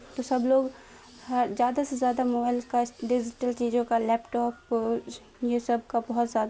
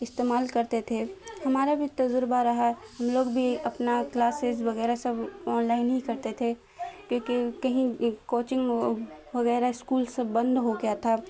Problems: constant background noise